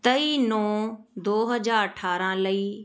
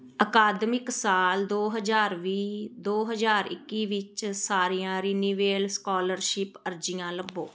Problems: background conversations at intervals